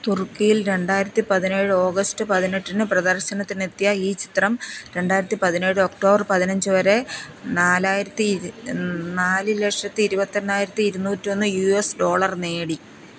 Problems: constant background noise